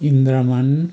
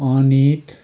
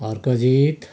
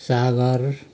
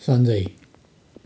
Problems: constant background noise